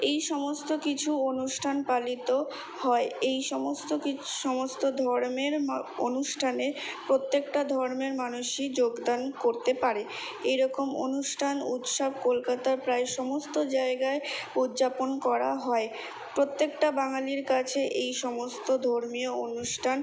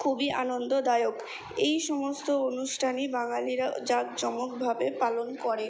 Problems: none marked